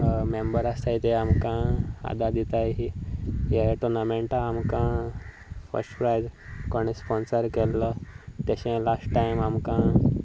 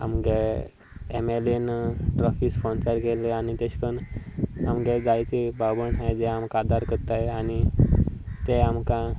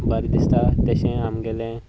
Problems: none marked